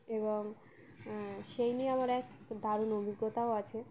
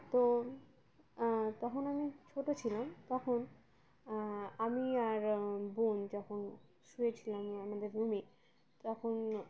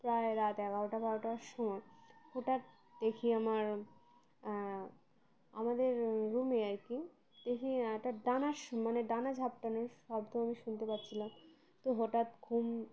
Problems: constant background noise